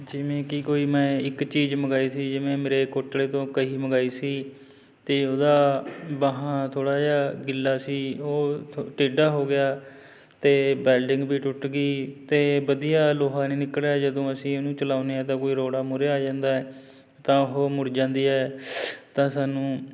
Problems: constant background noise